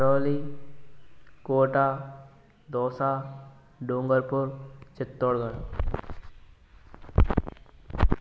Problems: none marked